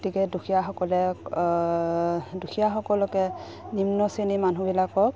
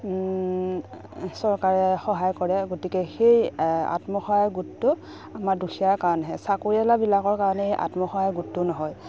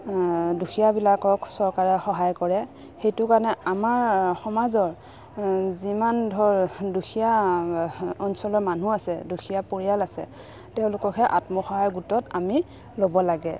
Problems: background sounds at intervals